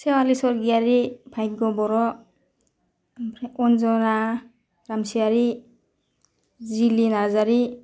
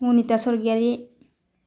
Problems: none marked